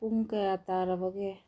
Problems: low volume